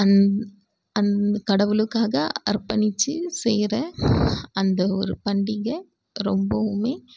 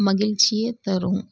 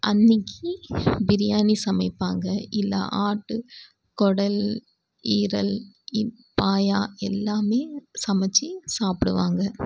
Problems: background sounds at intervals